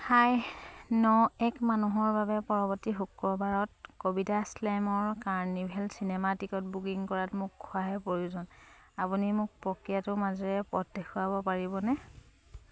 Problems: none marked